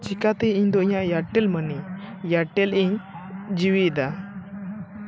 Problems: constant background noise, background conversations at intervals